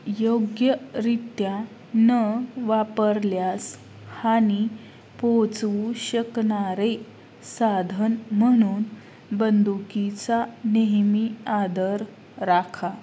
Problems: constant background noise